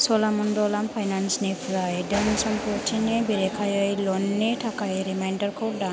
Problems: constant background noise